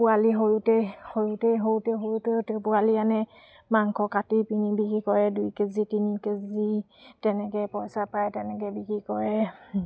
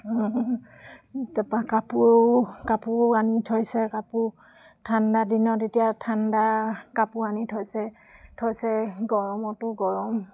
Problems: none marked